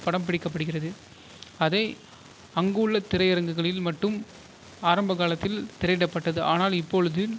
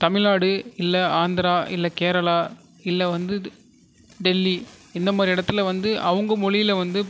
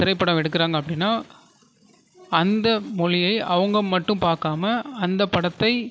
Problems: constant background noise